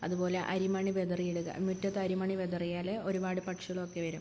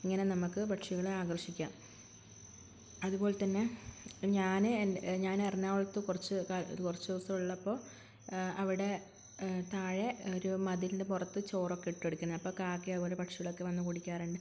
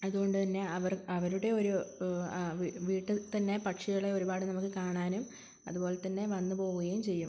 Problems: constant background noise